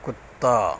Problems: constant background noise, low volume